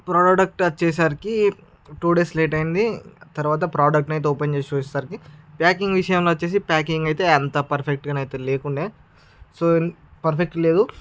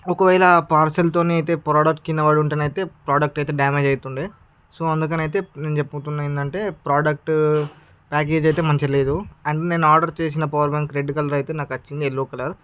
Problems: background sounds at intervals